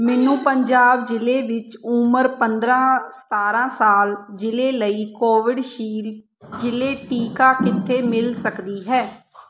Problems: background sounds at intervals, background conversations at intervals